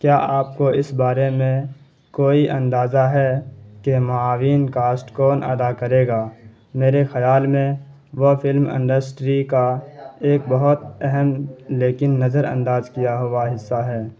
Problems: constant background noise